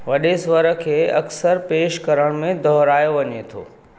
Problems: none marked